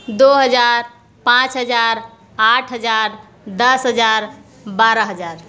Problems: background sounds at intervals